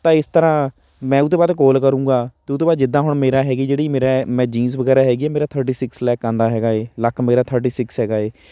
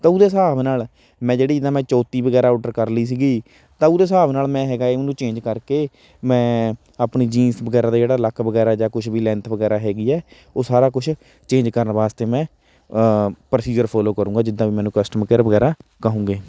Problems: none marked